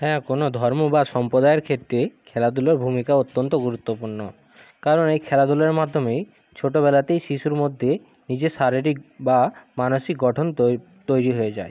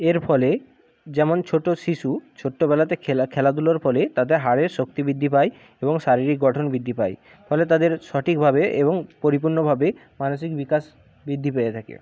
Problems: background sounds at intervals